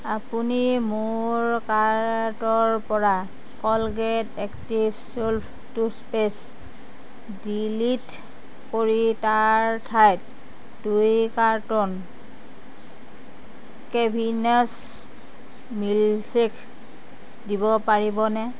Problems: none marked